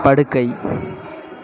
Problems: continuous background conversations